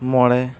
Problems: none marked